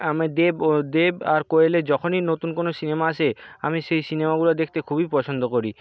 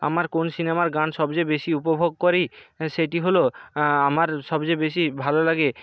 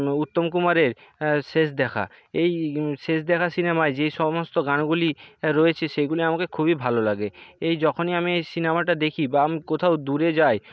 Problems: background sounds at intervals